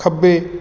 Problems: none marked